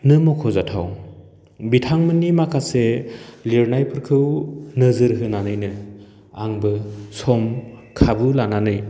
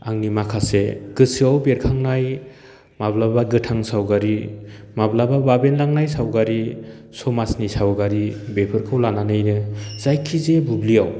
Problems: none marked